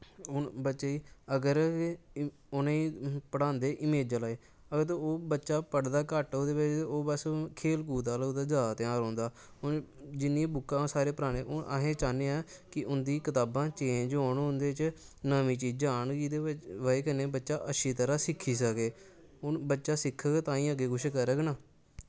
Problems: constant background noise